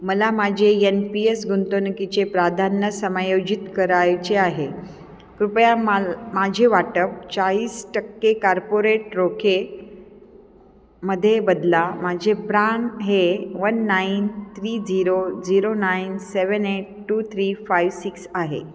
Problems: constant background noise, continuous background conversations, echo